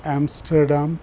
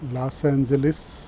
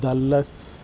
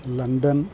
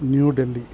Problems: constant background noise